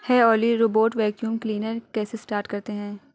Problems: constant background noise